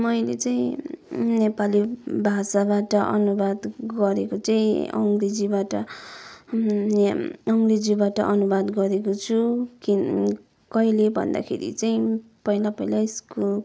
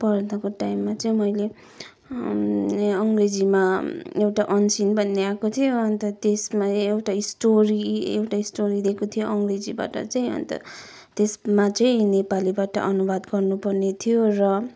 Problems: background sounds at intervals